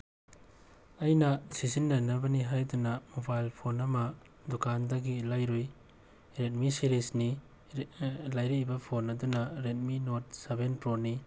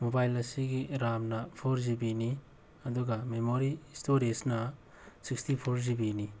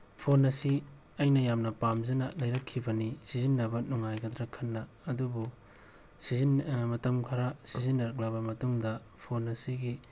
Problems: none marked